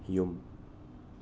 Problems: low volume